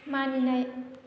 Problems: none marked